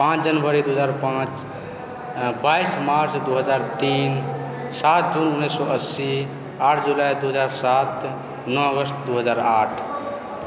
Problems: constant background noise, background conversations at intervals